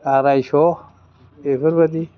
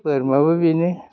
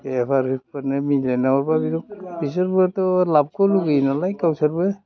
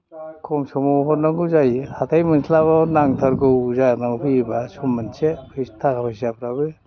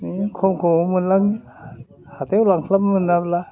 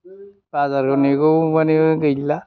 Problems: background sounds at intervals, background conversations at intervals